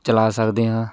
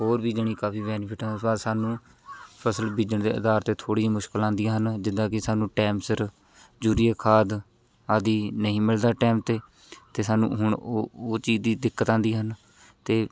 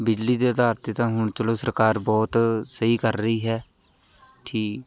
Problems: constant background noise, background conversations at intervals